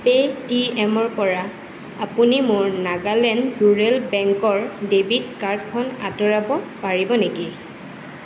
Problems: constant background noise